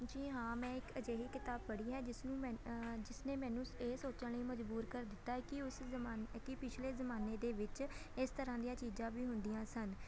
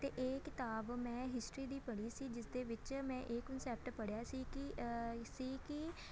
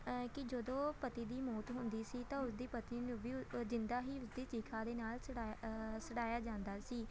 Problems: constant background noise, continuous background conversations